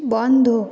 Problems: constant background noise, background conversations at intervals